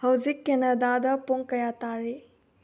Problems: low volume